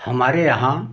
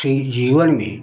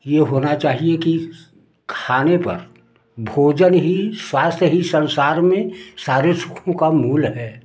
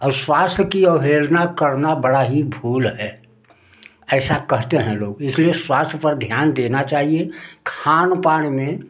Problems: none marked